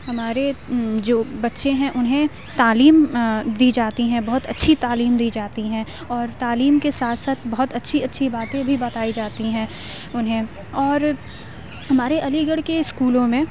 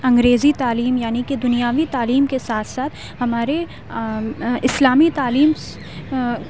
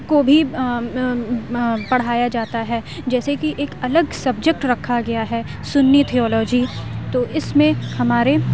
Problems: constant background noise, low volume